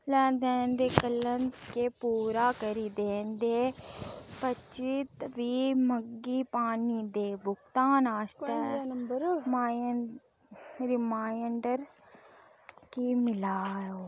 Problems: background sounds at intervals